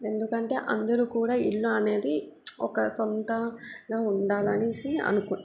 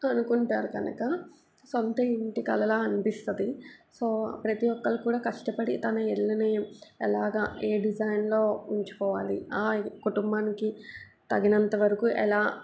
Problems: background sounds at intervals